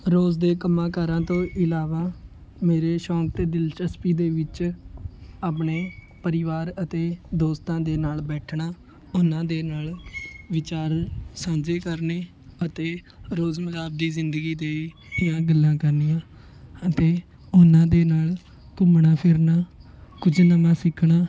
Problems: constant background noise